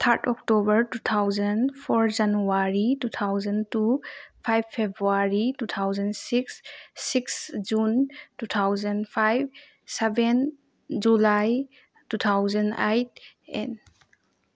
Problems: none marked